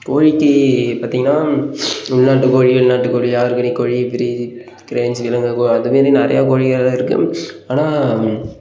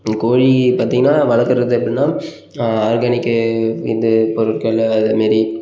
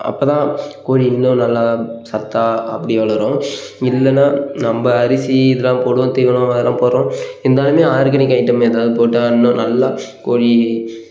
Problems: background sounds at intervals